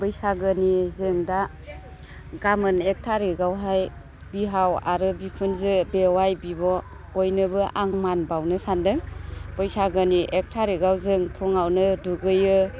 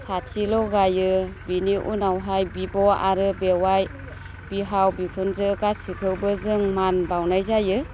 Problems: constant background noise